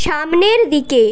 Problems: none marked